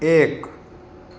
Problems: constant background noise